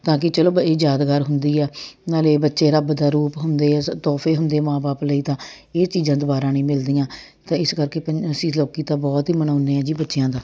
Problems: none marked